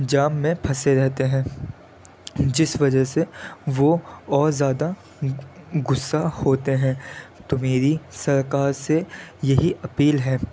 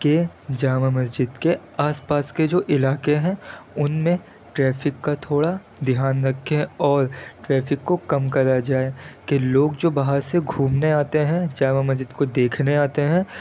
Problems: constant background noise